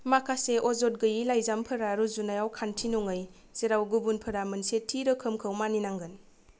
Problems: none marked